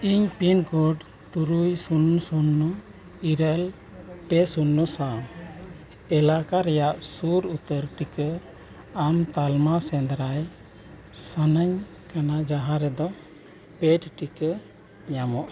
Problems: low volume